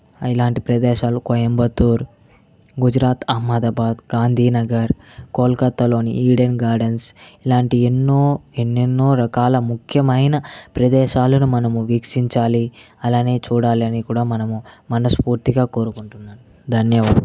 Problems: background sounds at intervals